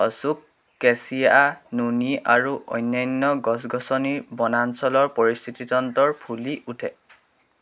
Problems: constant background noise